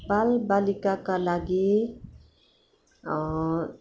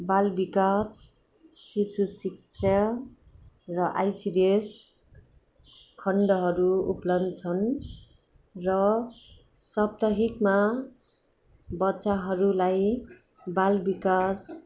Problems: background sounds at intervals